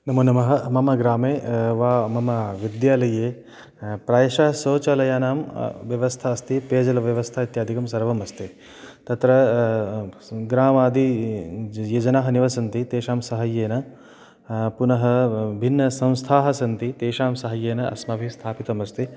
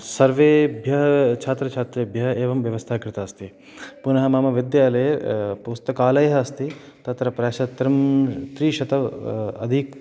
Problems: none marked